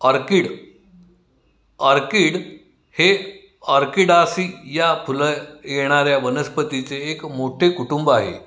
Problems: none marked